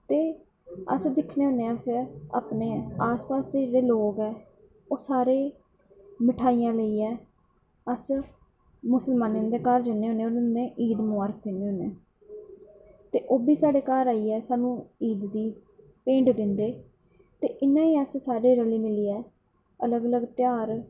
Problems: constant background noise